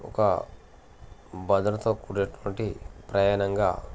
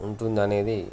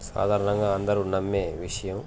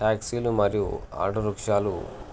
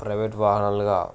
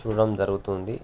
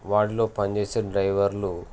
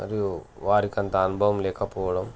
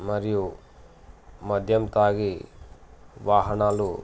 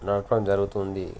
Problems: constant background noise